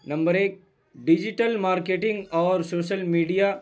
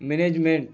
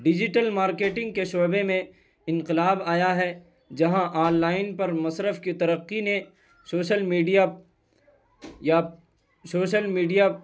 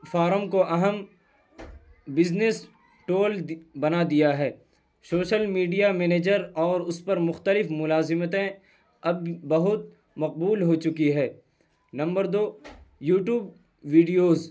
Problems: none marked